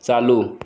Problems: none marked